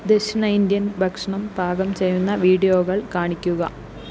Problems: constant background noise, low volume